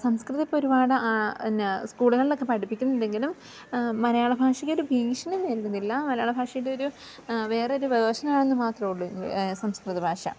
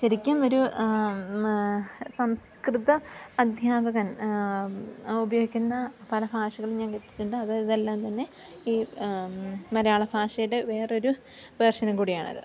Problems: background sounds at intervals